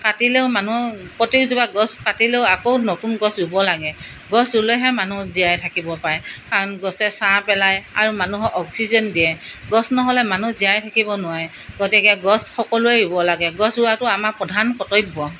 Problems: none marked